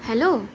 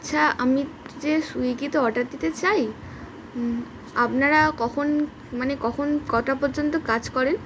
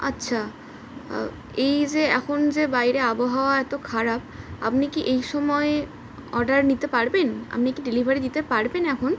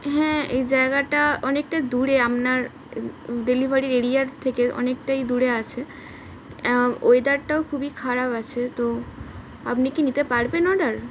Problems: none marked